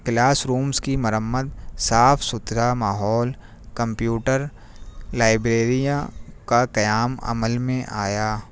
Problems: none marked